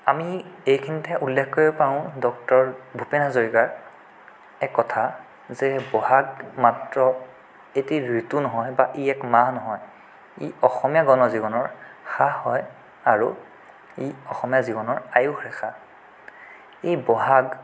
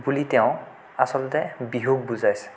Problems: none marked